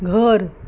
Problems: none marked